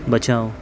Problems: none marked